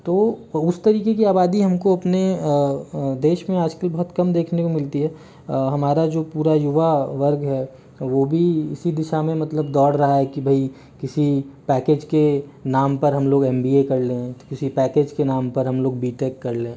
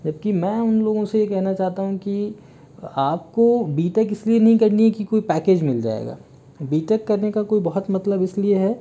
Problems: background sounds at intervals